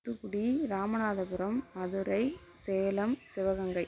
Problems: constant background noise